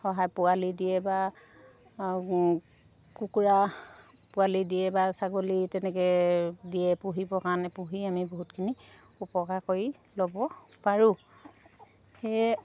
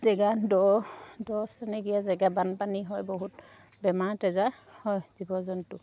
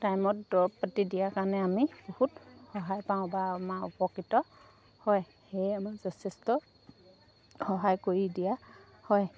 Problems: none marked